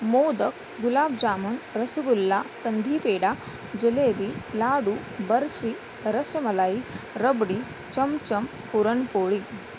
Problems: constant background noise